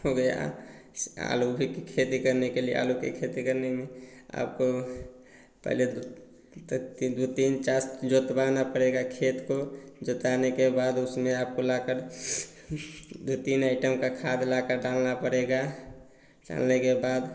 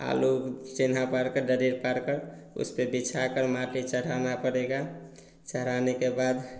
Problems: none marked